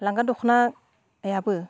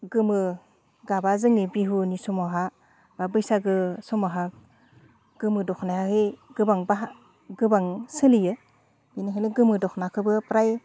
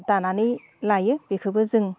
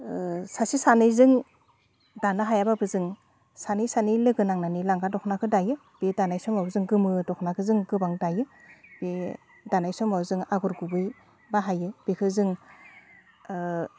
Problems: none marked